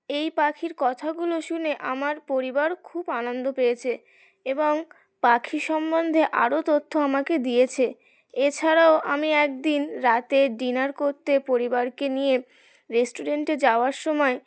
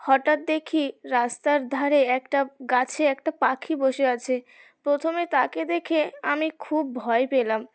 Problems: background sounds at intervals, continuous background conversations